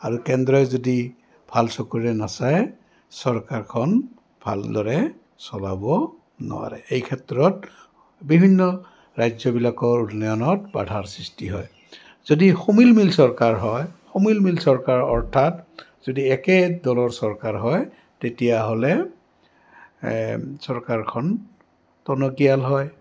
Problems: background sounds at intervals, background conversations at intervals